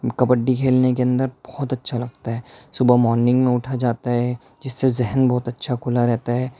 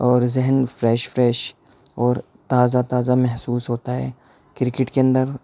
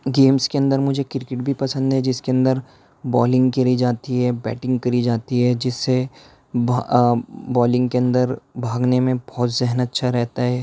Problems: none marked